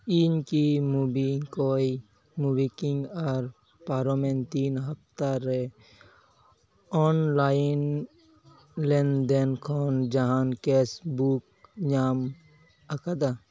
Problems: background sounds at intervals